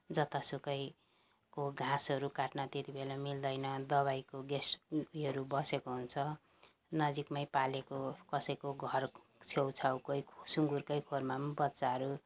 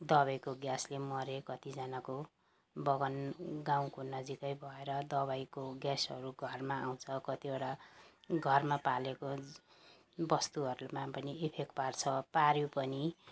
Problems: background sounds at intervals